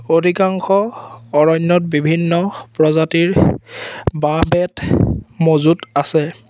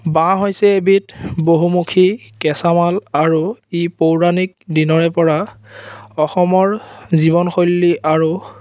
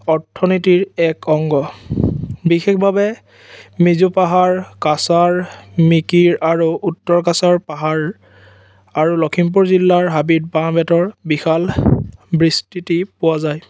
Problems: none marked